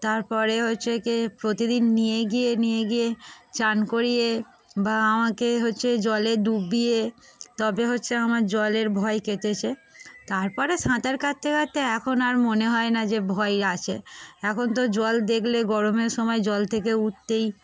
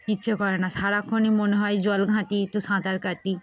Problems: constant background noise